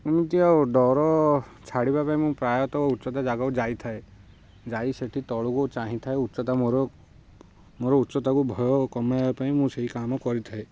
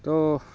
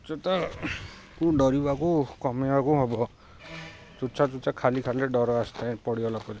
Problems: constant background noise